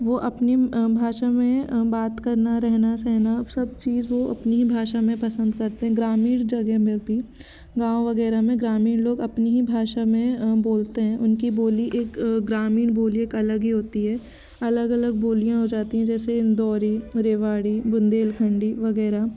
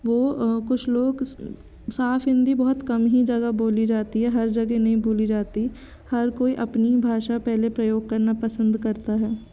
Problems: constant background noise